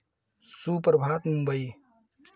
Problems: none marked